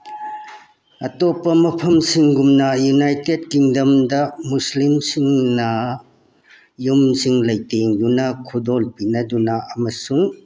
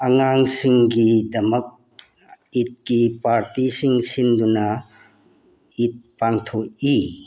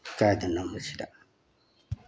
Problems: background sounds at intervals